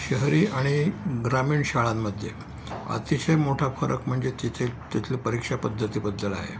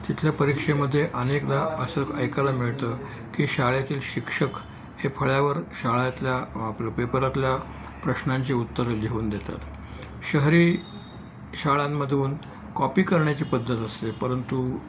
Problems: none marked